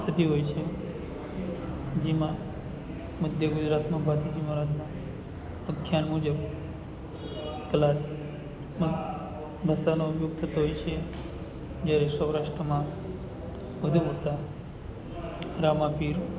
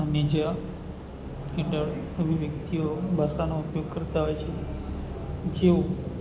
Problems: none marked